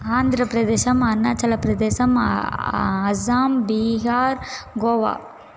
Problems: constant background noise